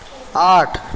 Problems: constant background noise